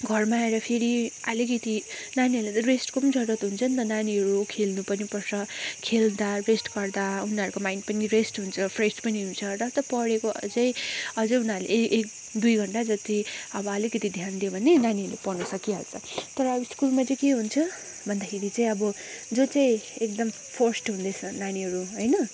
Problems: constant background noise